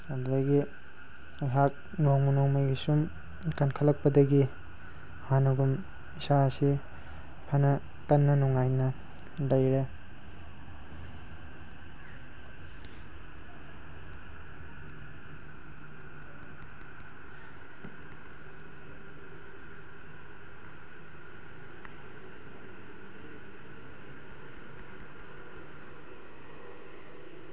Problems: background sounds at intervals